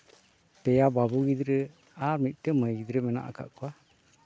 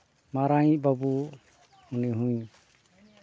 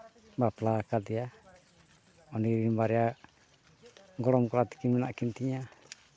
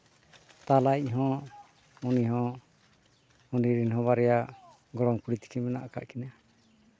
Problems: background sounds at intervals, background conversations at intervals